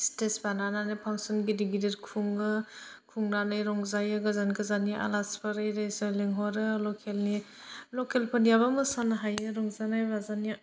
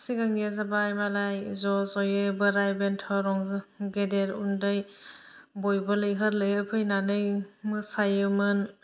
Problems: low volume